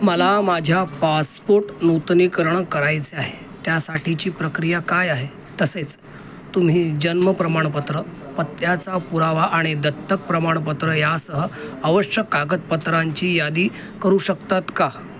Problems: constant background noise, background conversations at intervals